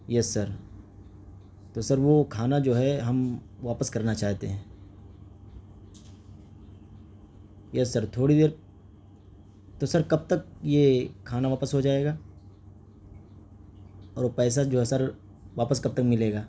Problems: constant background noise